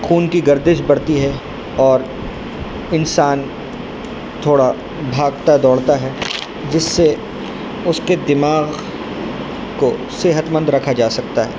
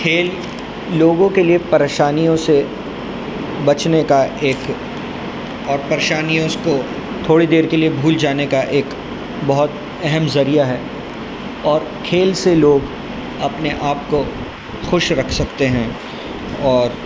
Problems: constant background noise